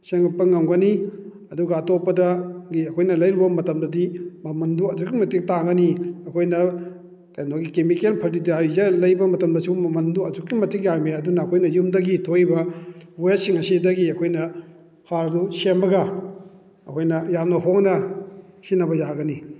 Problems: none marked